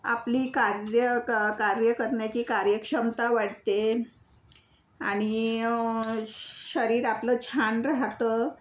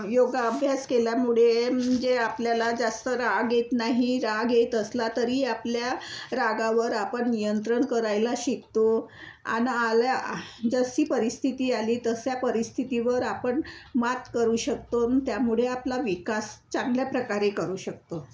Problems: none marked